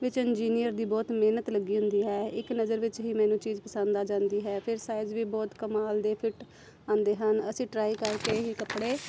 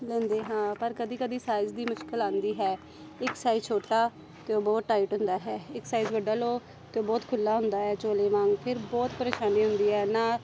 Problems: constant background noise, background conversations at intervals